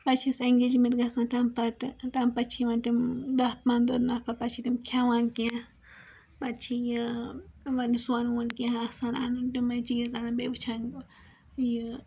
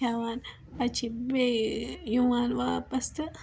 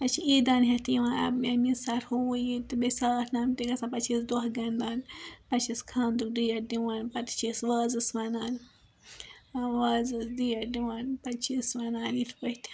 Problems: background sounds at intervals